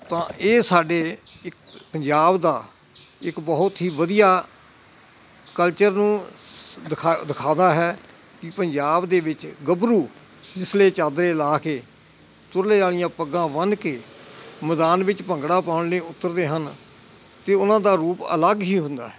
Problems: constant background noise